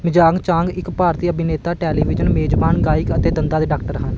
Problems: background sounds at intervals